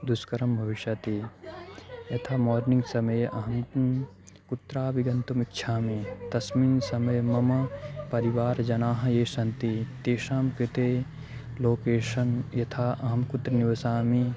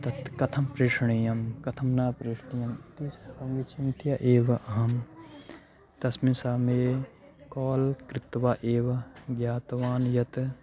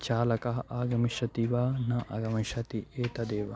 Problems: background sounds at intervals